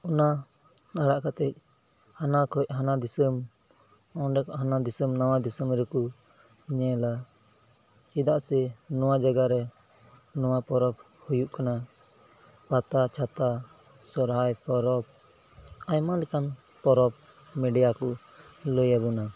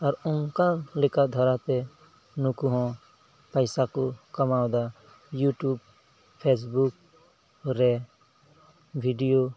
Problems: background sounds at intervals, low volume